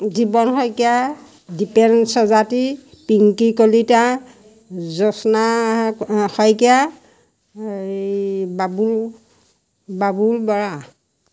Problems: none marked